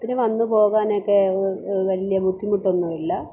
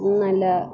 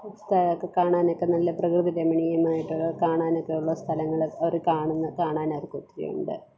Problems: none marked